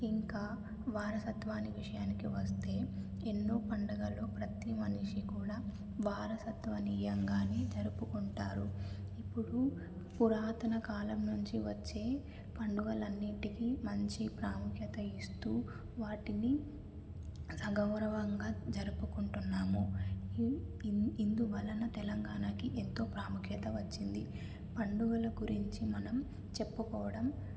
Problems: low volume